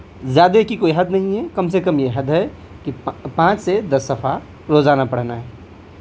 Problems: constant background noise